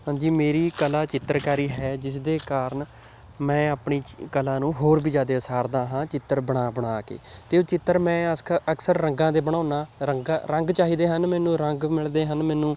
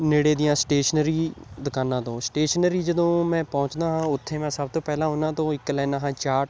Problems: background sounds at intervals